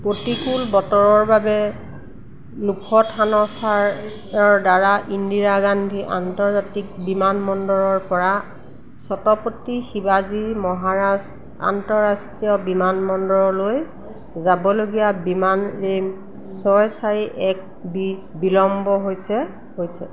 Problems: constant background noise